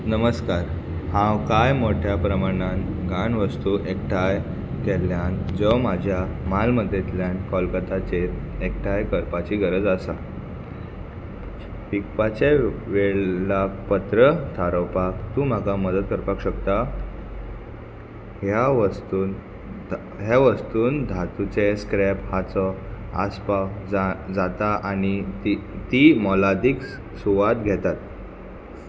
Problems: constant background noise